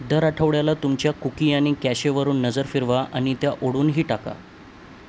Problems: none marked